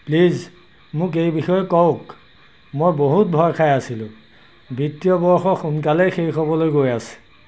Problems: none marked